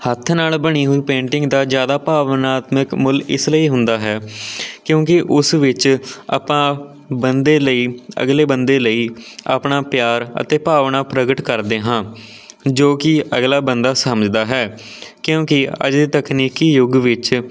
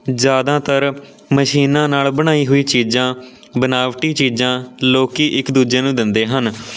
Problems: none marked